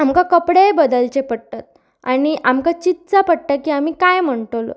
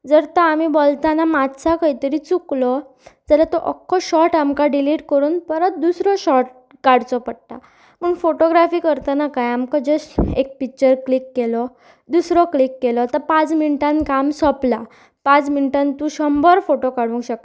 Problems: constant background noise